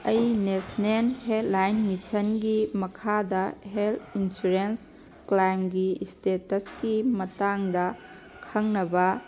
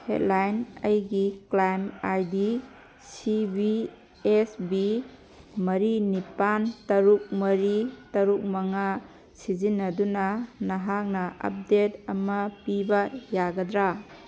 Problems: background sounds at intervals